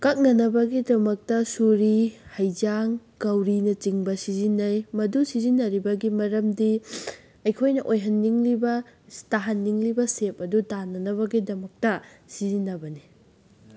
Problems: background sounds at intervals